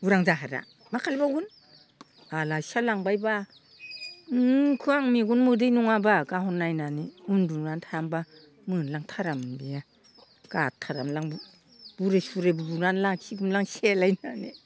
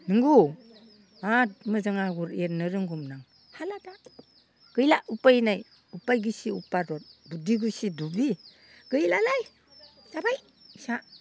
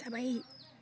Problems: constant background noise